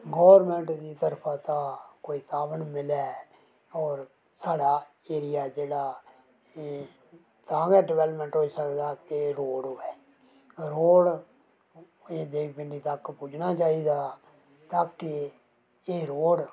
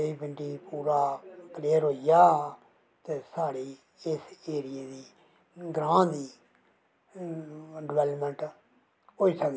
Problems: none marked